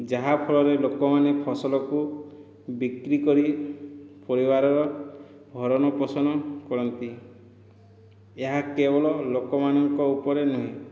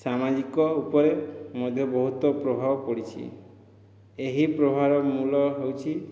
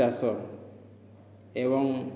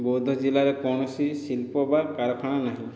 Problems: none marked